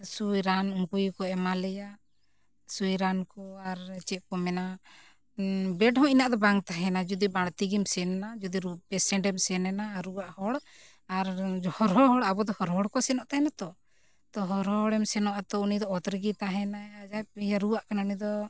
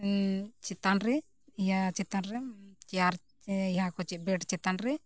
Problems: none marked